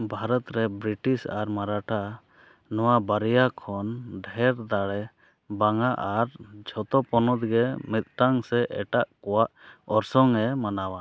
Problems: none marked